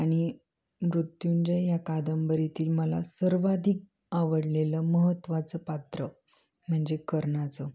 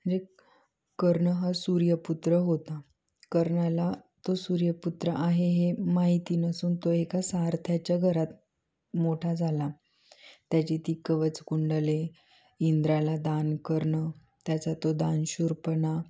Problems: none marked